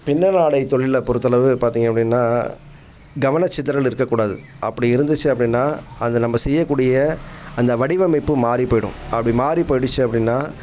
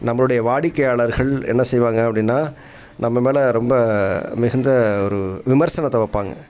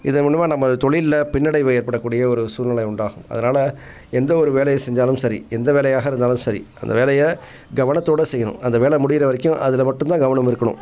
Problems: background sounds at intervals, background conversations at intervals